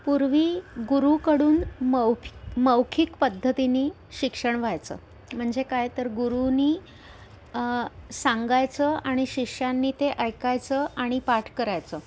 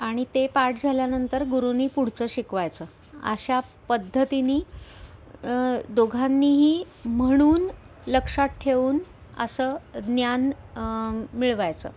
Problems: background sounds at intervals